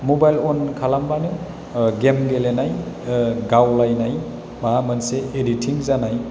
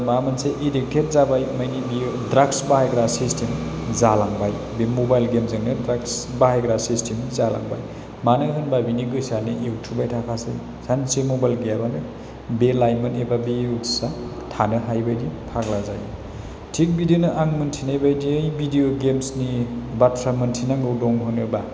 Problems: constant background noise